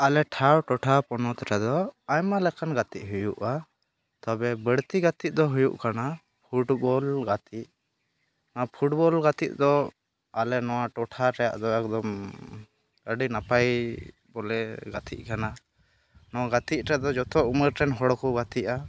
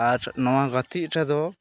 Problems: constant background noise, background conversations at intervals